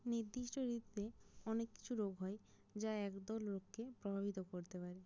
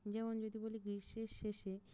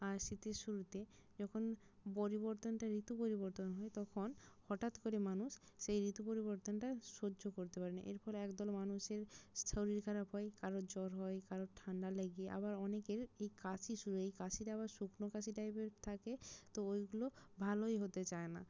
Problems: none marked